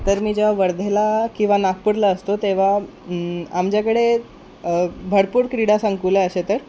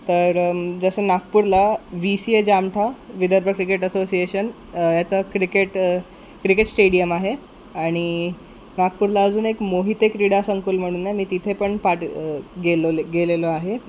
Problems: constant background noise